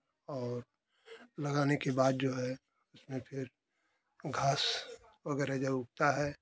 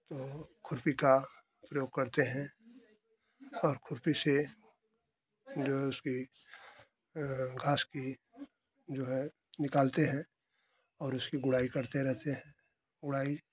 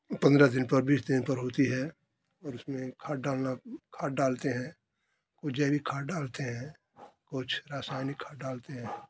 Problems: none marked